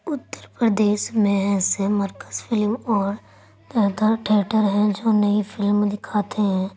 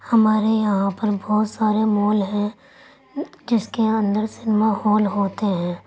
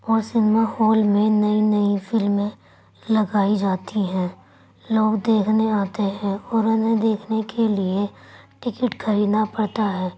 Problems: none marked